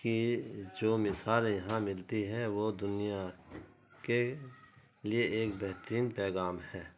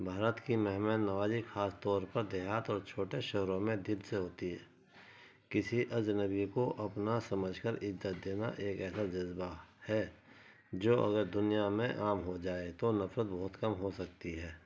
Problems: constant background noise